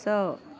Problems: background sounds at intervals